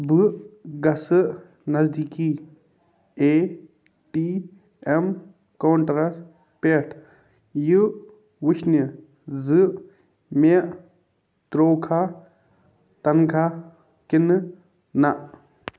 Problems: none marked